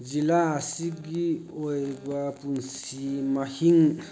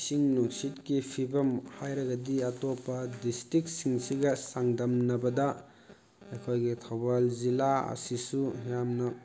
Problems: constant background noise